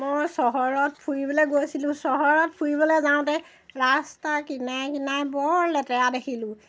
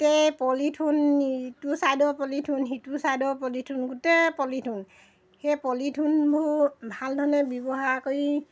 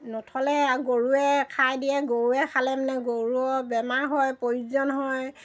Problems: none marked